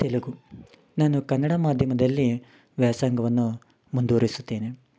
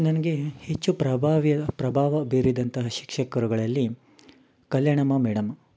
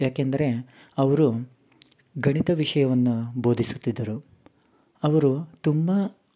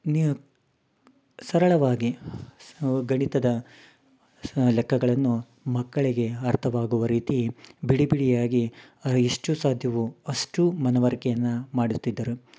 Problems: background sounds at intervals